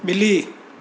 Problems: constant background noise, echo